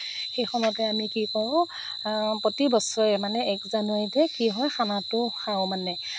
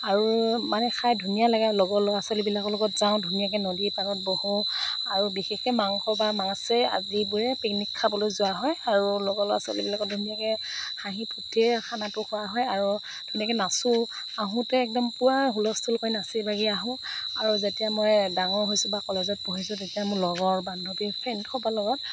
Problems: background sounds at intervals